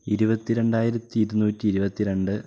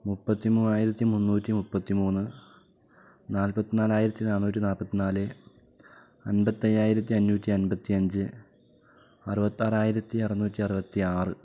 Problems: low volume